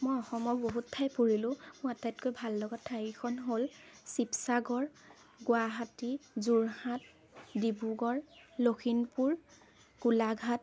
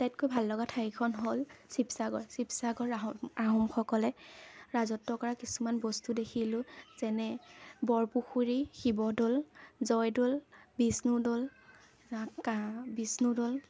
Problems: none marked